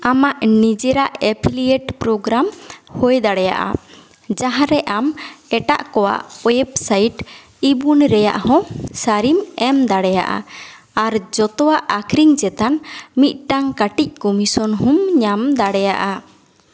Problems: echo